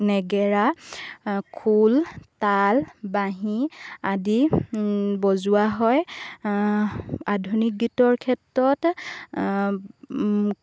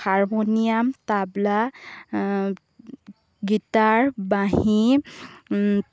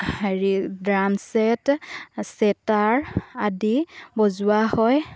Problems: background sounds at intervals